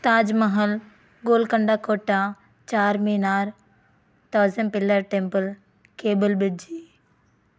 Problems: none marked